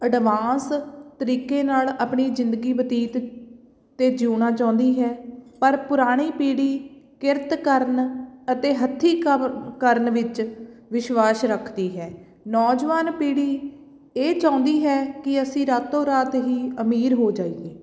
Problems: background sounds at intervals